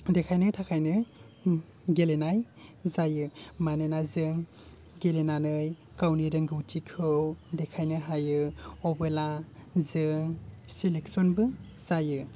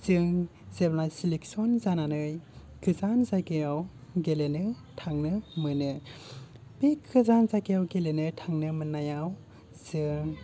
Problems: low volume